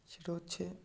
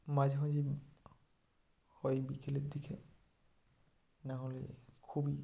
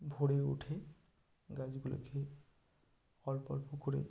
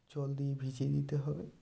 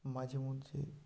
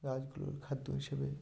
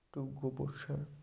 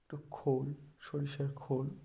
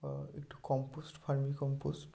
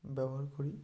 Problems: background sounds at intervals